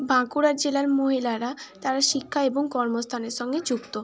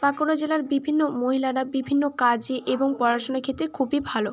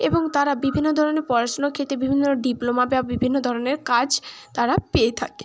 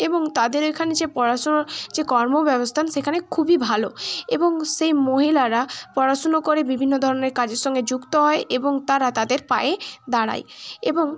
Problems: constant background noise